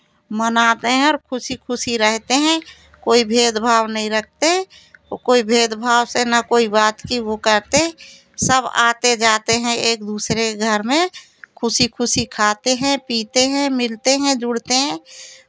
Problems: constant background noise, continuous background conversations